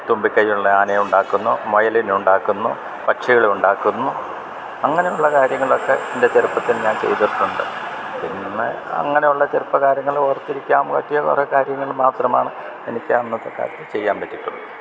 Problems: background sounds at intervals